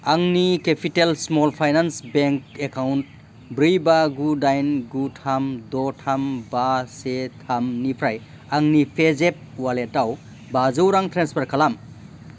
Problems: constant background noise